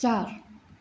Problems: constant background noise